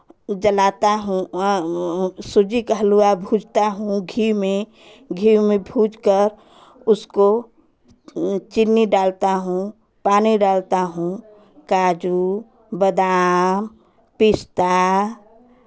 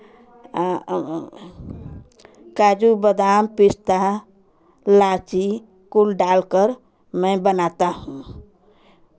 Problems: constant background noise